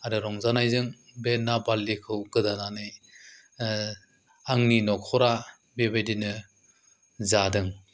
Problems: low volume